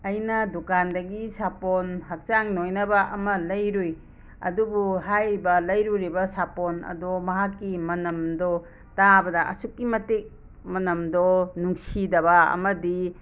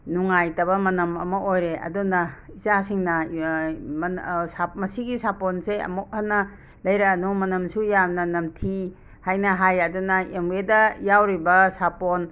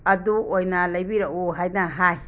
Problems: background sounds at intervals